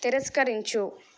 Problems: none marked